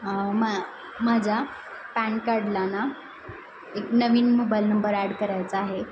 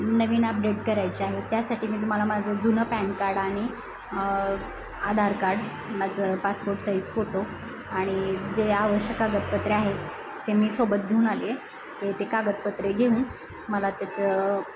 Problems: constant background noise, background conversations at intervals